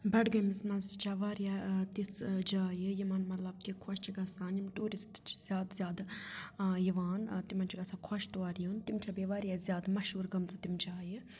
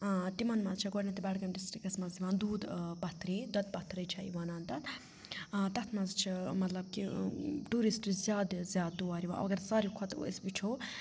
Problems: none marked